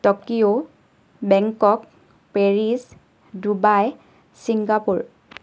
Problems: none marked